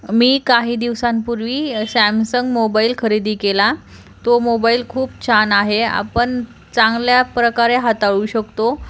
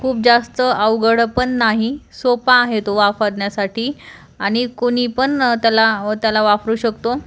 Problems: constant background noise